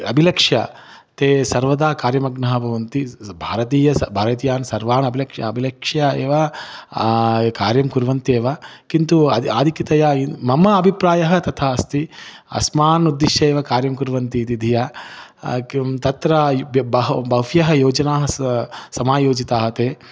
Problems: none marked